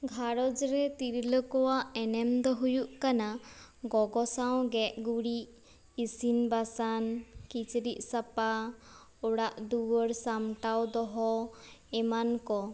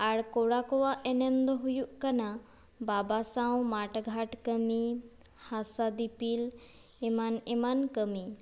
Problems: background sounds at intervals